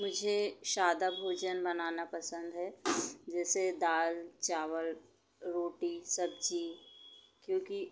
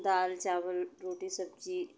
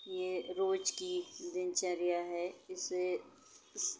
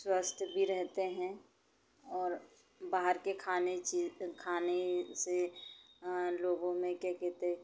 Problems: constant background noise